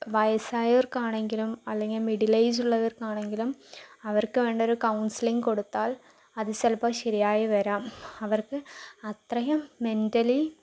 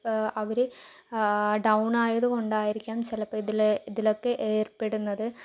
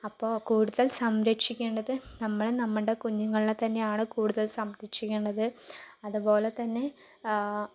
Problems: low volume